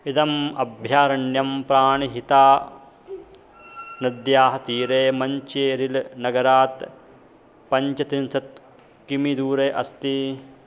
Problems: constant background noise